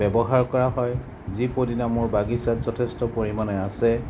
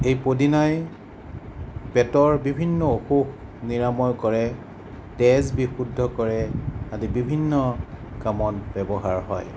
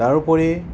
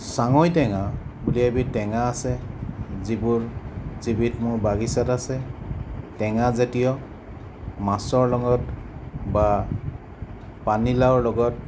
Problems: constant background noise